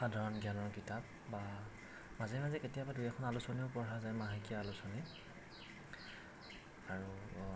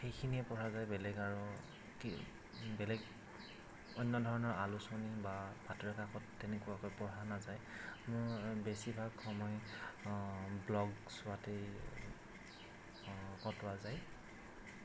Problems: constant background noise, low volume